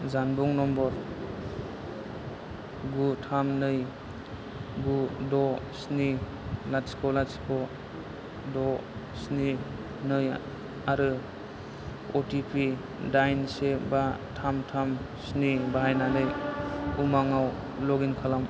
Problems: low volume